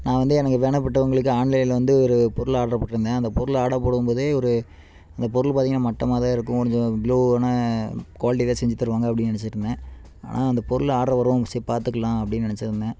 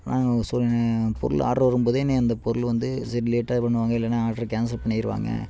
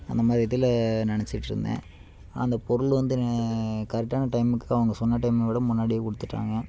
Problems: constant background noise